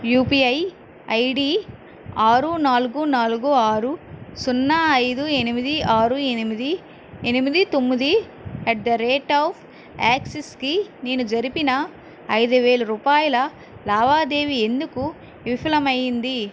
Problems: constant background noise